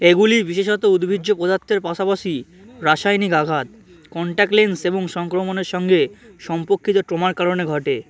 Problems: constant background noise